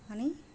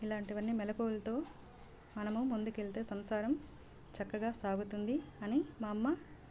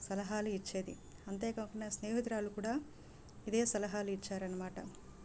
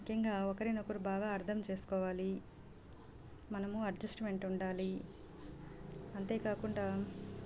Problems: none marked